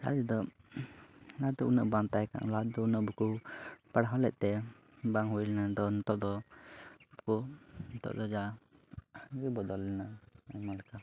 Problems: background sounds at intervals, low volume